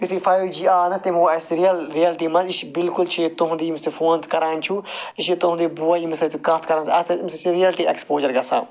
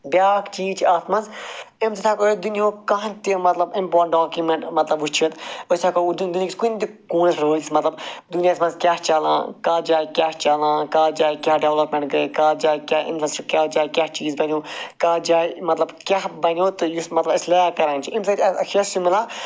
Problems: constant background noise